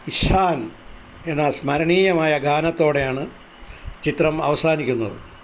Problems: constant background noise